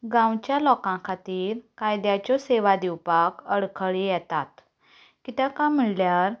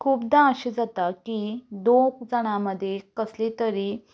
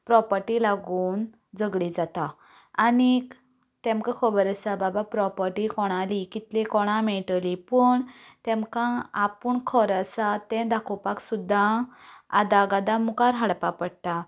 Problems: background sounds at intervals, continuous background conversations